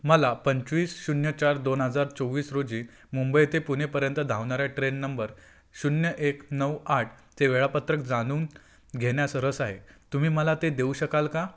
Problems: constant background noise